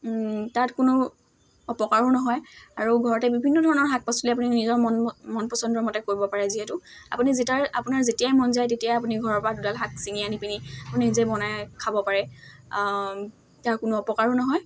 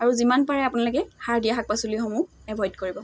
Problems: constant background noise